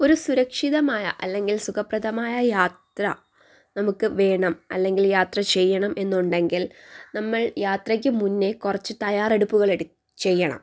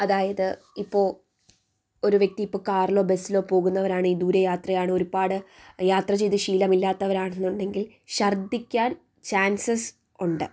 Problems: none marked